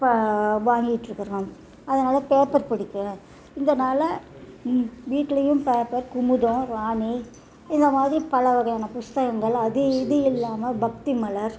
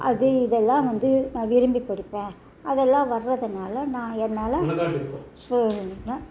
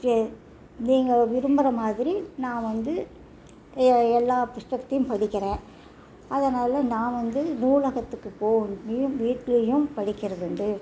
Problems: background conversations at intervals